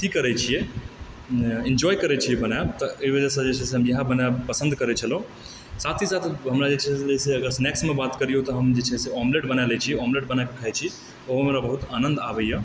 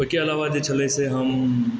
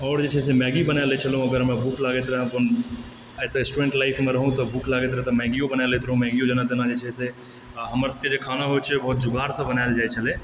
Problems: background sounds at intervals